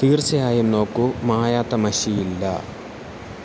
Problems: constant background noise